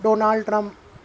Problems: constant background noise